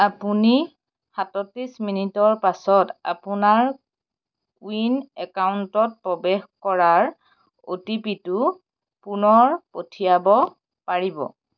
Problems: none marked